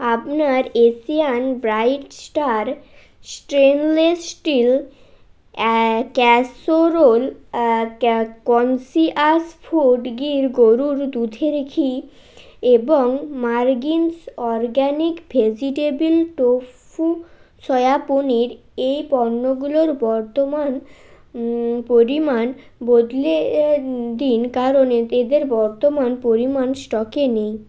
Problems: constant background noise